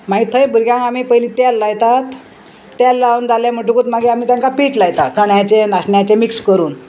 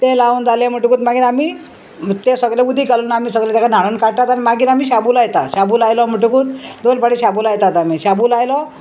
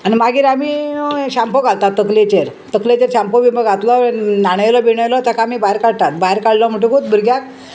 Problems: constant background noise